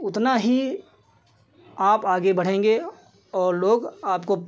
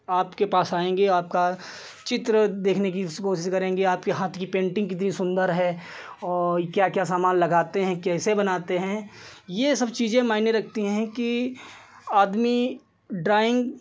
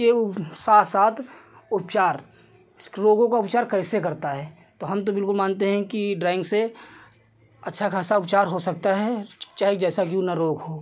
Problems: none marked